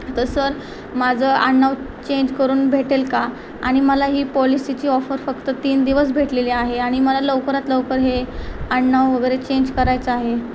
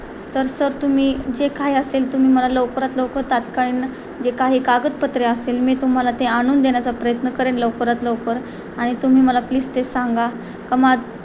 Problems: constant background noise